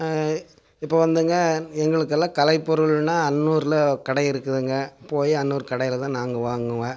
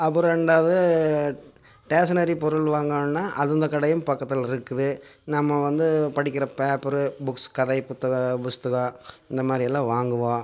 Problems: background sounds at intervals